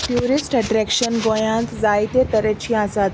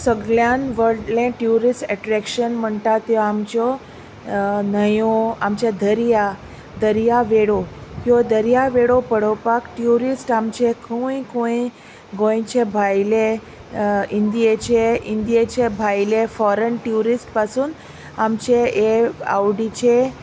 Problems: constant background noise